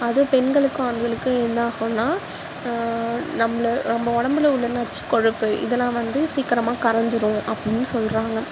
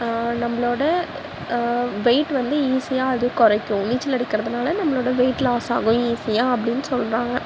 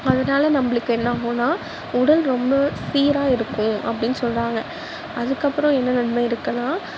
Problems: constant background noise